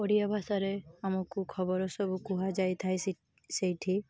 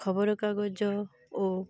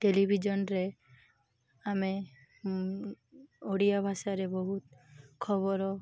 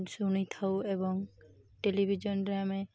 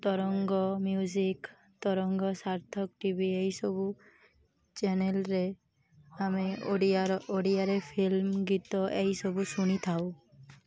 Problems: constant background noise, continuous background conversations